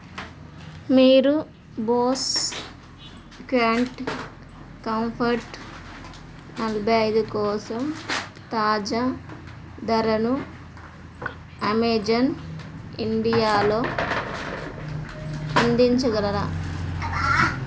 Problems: background sounds at intervals